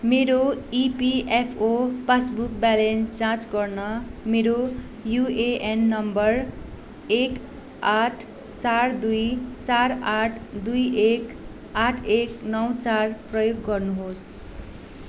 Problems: constant background noise